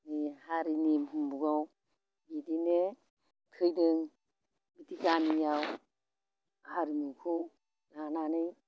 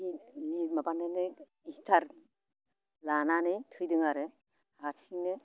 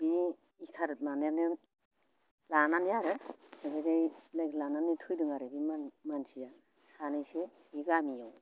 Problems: constant background noise